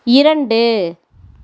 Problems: none marked